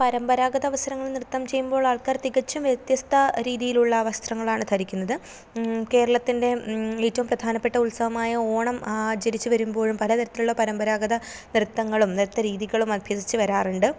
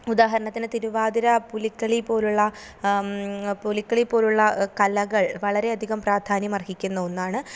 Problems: none marked